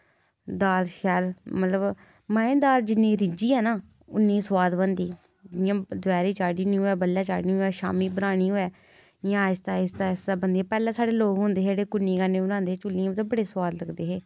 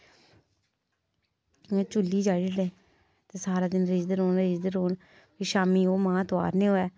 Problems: none marked